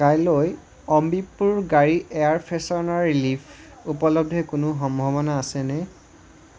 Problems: none marked